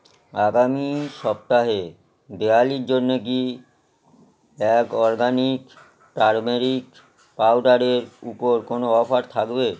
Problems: constant background noise